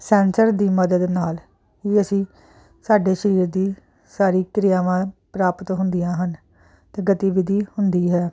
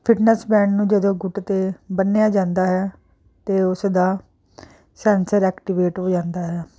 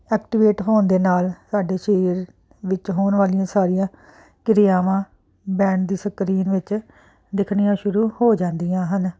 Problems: constant background noise